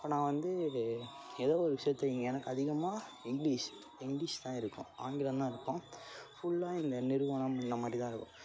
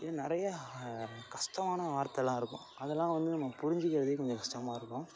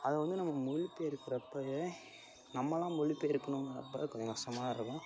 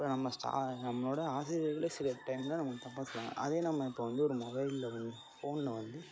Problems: constant background noise